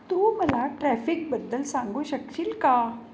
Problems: none marked